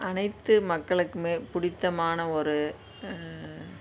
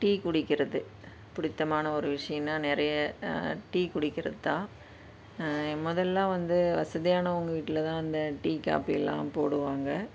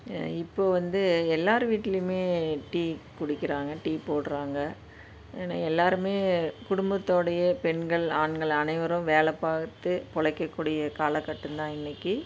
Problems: constant background noise